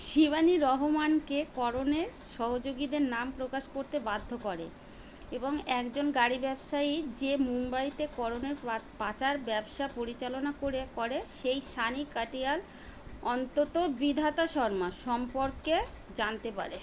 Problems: constant background noise